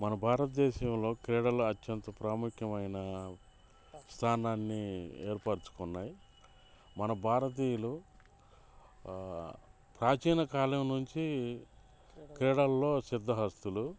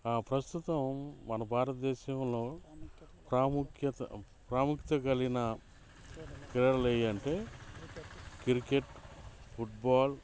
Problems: background sounds at intervals, background conversations at intervals